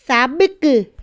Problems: none marked